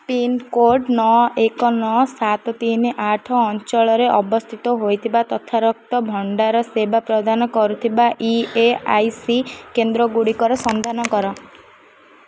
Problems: none marked